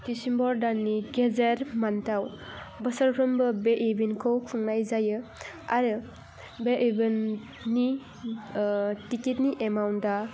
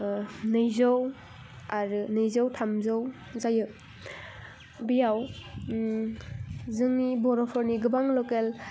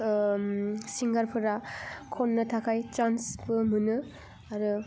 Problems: none marked